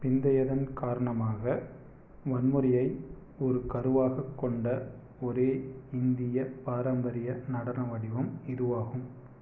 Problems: none marked